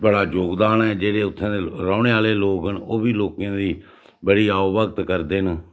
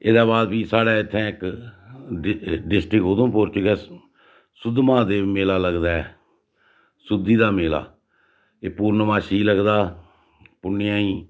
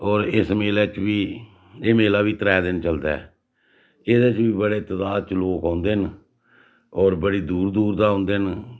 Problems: none marked